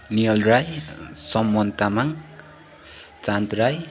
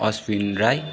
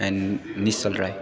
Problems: none marked